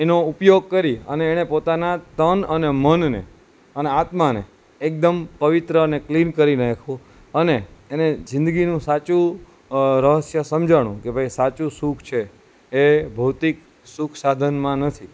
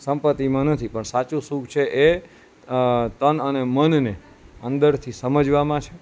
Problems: constant background noise